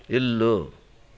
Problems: none marked